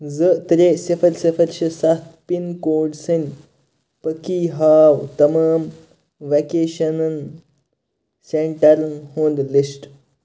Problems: constant background noise